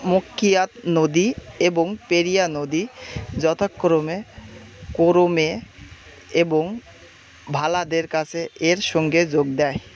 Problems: constant background noise, background conversations at intervals